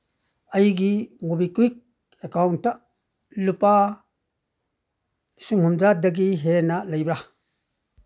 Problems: none marked